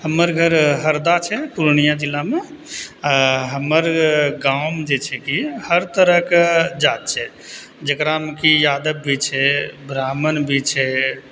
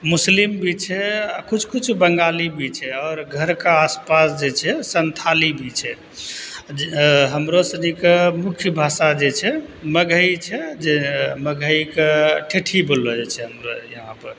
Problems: none marked